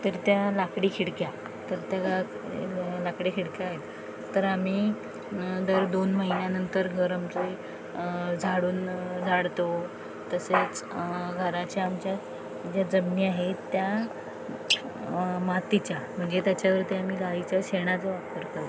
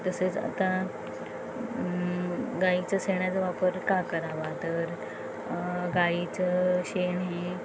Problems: constant background noise, background conversations at intervals